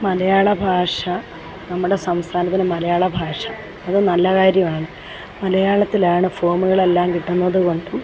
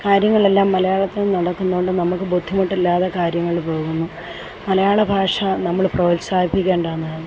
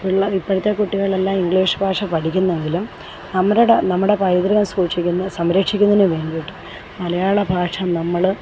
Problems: none marked